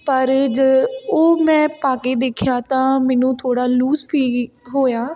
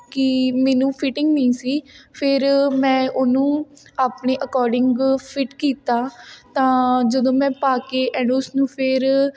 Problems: none marked